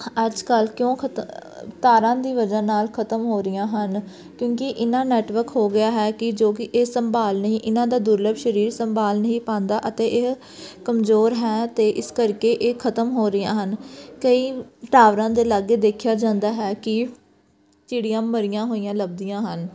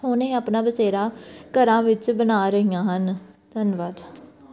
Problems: background sounds at intervals, background conversations at intervals